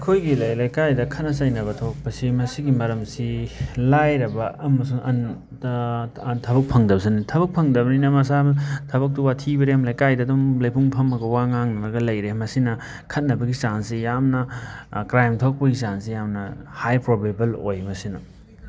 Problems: background sounds at intervals